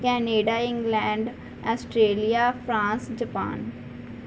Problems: none marked